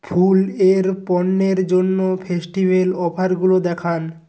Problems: constant background noise